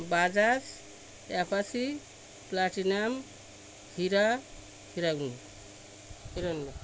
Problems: constant background noise